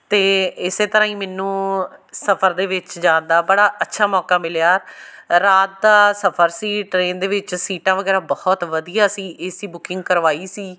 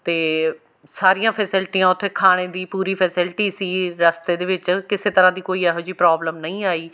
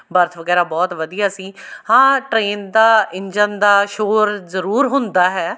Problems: none marked